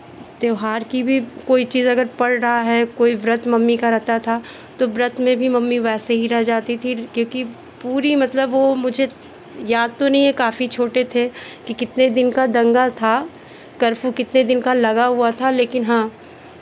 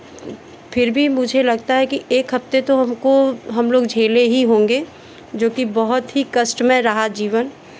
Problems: none marked